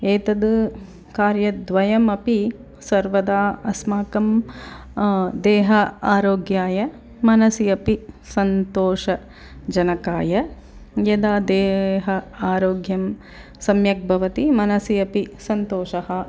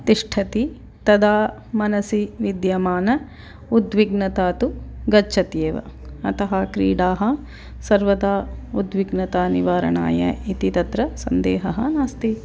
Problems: background conversations at intervals